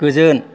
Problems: constant background noise